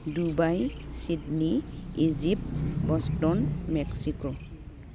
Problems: constant background noise